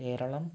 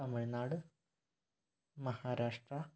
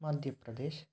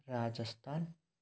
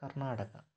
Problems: low volume